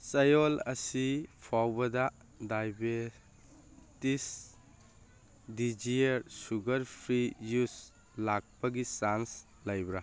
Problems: none marked